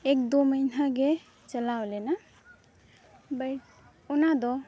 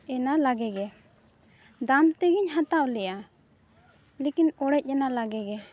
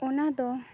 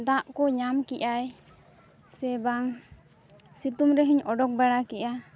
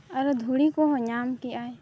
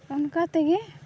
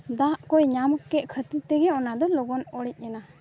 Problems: none marked